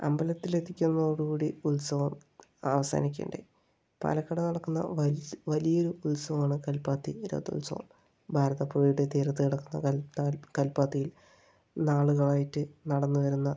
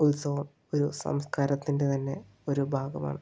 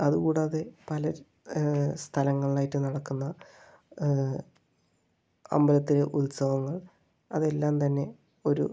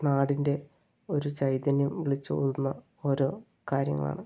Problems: low volume